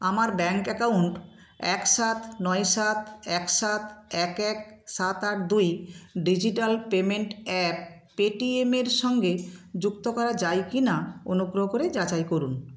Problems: background sounds at intervals